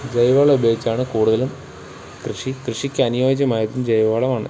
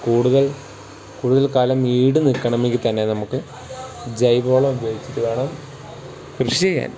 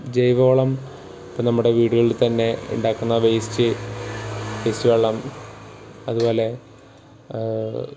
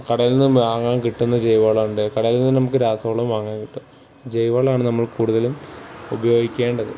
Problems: background sounds at intervals